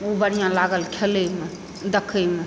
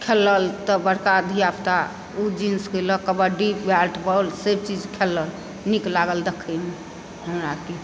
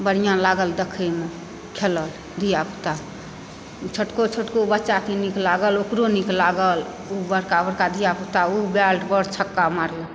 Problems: background sounds at intervals